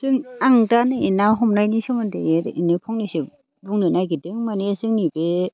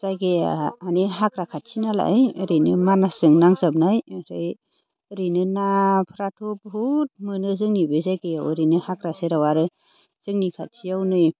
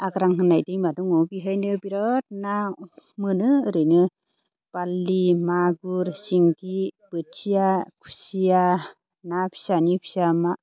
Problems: constant background noise